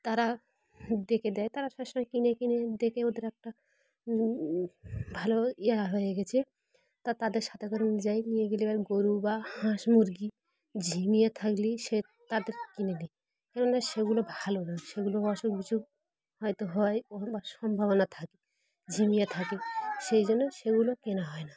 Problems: constant background noise, background conversations at intervals